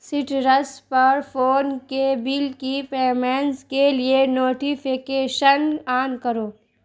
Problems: constant background noise